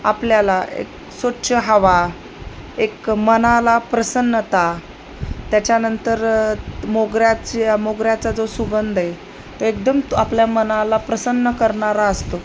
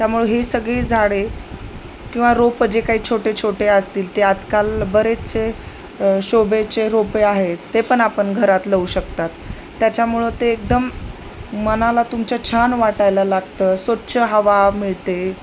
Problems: constant background noise